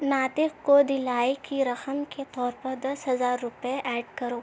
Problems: constant background noise